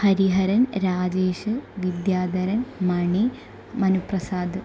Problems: none marked